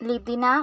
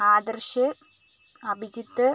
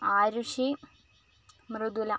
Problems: constant background noise